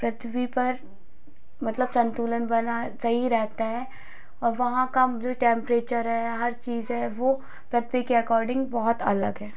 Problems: constant background noise